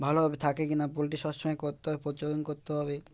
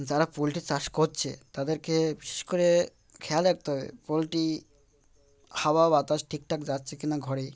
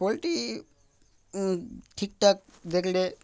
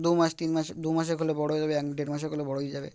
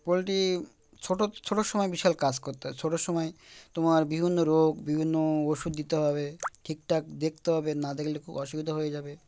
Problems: background sounds at intervals, background conversations at intervals